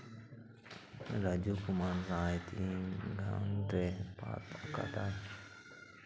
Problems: low volume